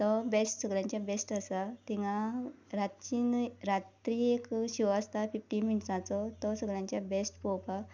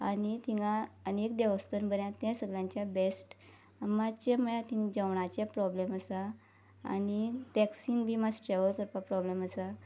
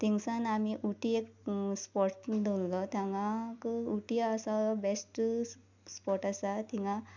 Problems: background sounds at intervals